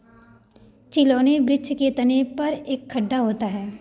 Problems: background sounds at intervals